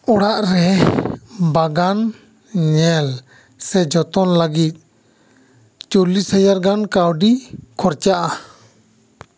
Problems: echo